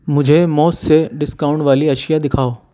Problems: none marked